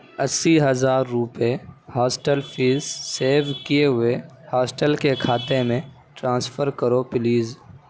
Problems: none marked